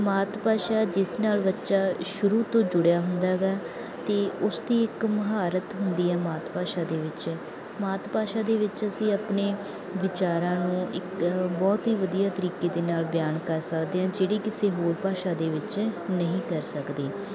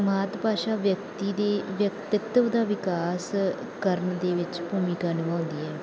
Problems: background sounds at intervals